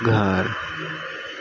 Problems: constant background noise, low volume